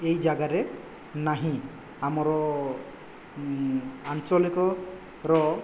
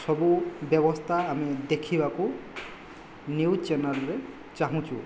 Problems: background sounds at intervals